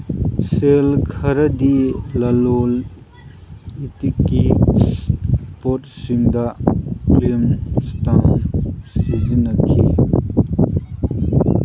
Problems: constant background noise